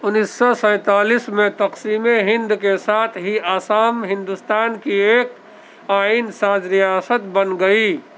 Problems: constant background noise, background conversations at intervals